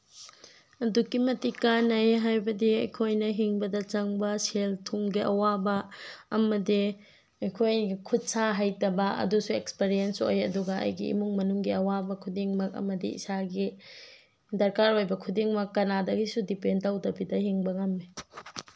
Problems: none marked